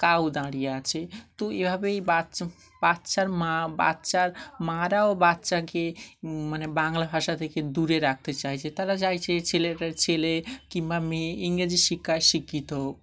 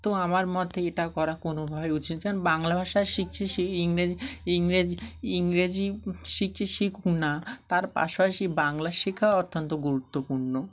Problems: none marked